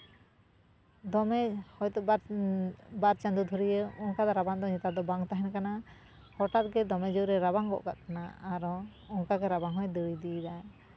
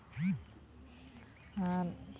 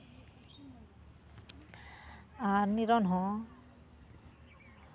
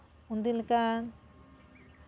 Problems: none marked